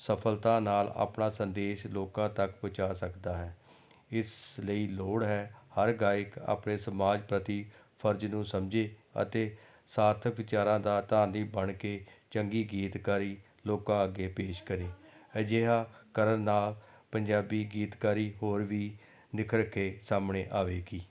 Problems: background conversations at intervals